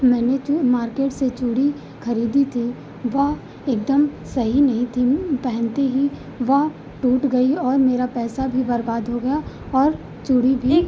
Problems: none marked